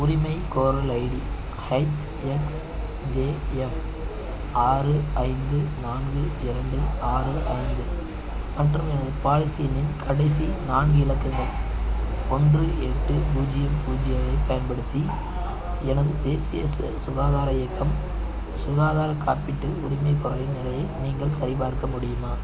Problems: none marked